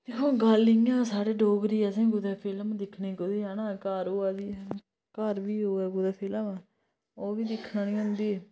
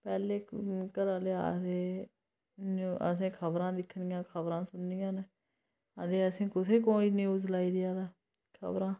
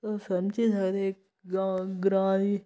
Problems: none marked